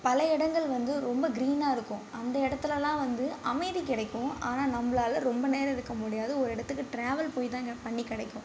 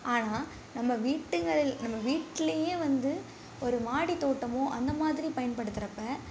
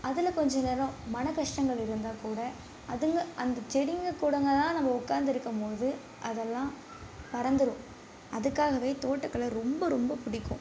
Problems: none marked